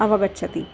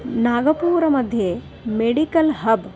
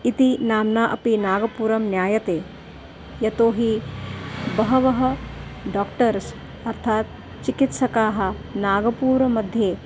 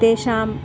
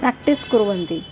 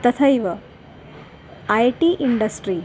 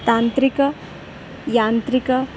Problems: background sounds at intervals